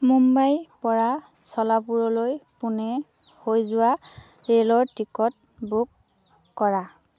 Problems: none marked